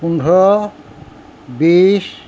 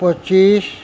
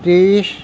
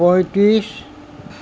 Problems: none marked